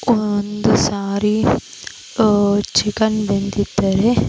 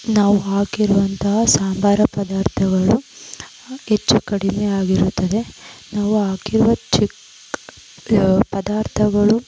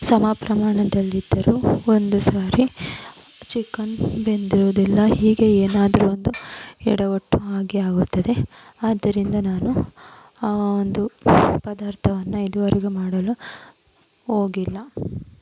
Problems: constant background noise